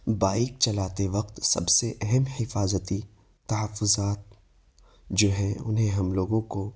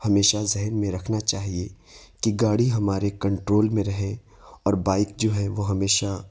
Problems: background sounds at intervals